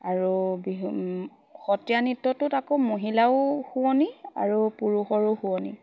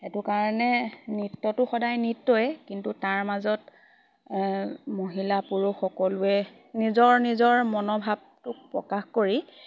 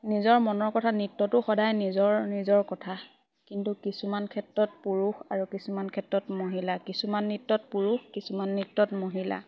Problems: constant background noise, background conversations at intervals